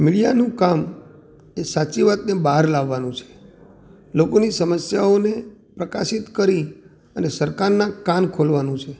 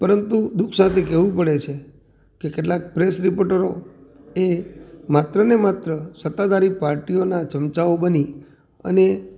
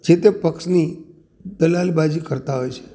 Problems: none marked